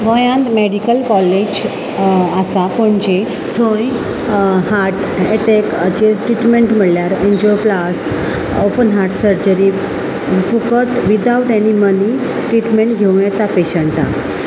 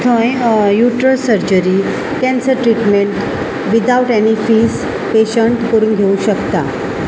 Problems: constant background noise